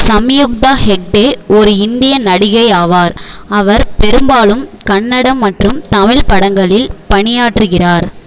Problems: background sounds at intervals